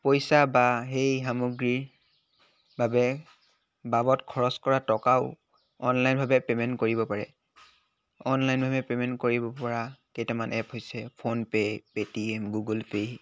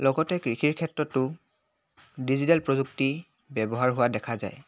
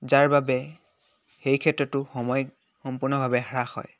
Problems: none marked